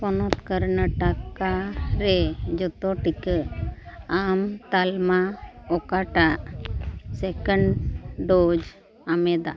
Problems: constant background noise, continuous background conversations